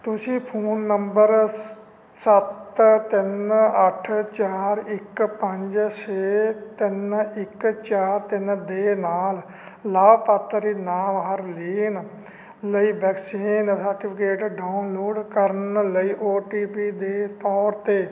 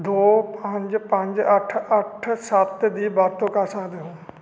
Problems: constant background noise